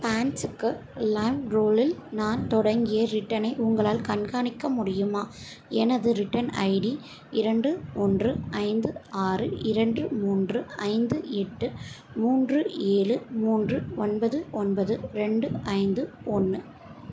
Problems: constant background noise